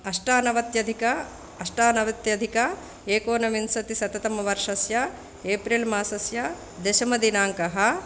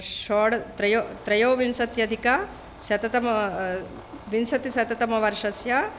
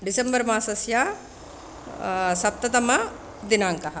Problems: none marked